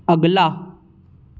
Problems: none marked